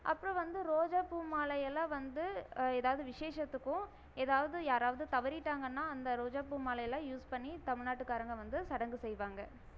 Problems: none marked